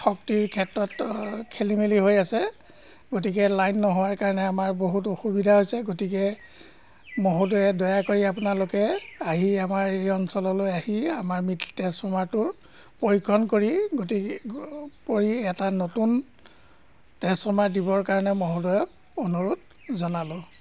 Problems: constant background noise